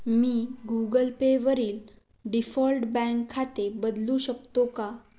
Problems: none marked